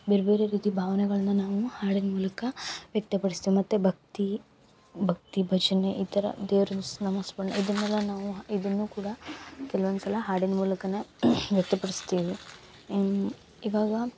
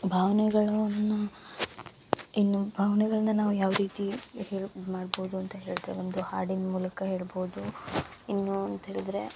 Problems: none marked